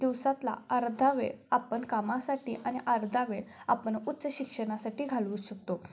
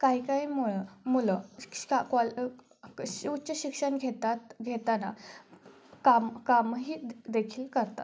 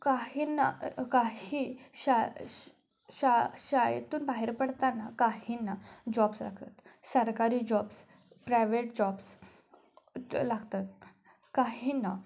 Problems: none marked